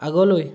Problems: background sounds at intervals